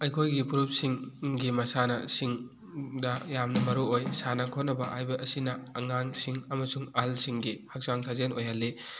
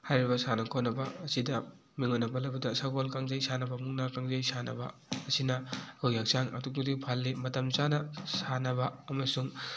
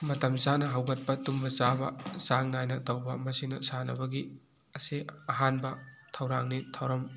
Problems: none marked